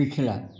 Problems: background sounds at intervals